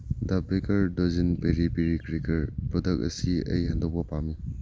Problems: low volume